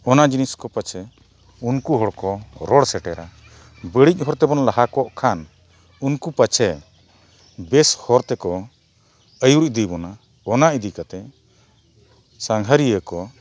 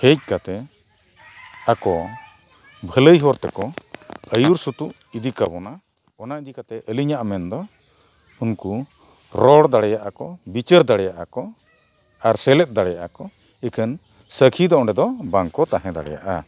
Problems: background sounds at intervals